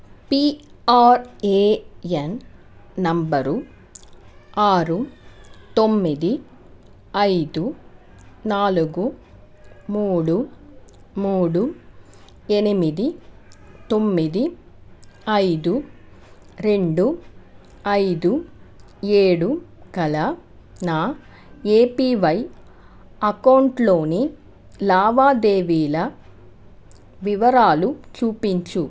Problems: constant background noise